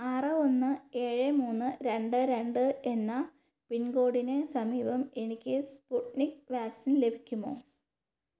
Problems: low volume